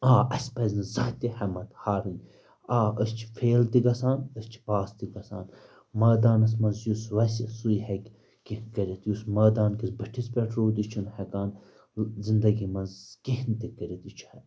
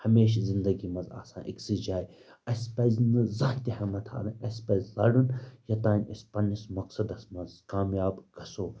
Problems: background sounds at intervals